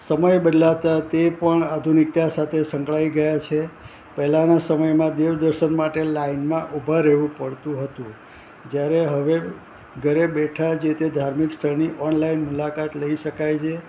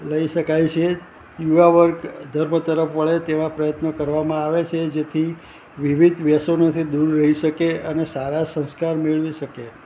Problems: constant background noise